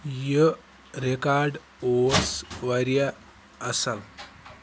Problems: none marked